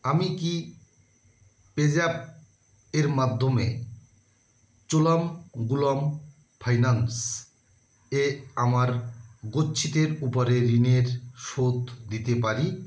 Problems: constant background noise